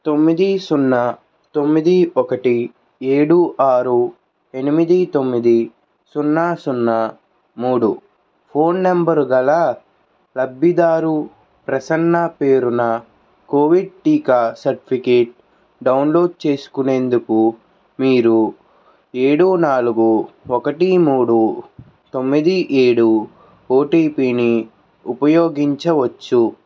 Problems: constant background noise